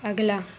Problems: background sounds at intervals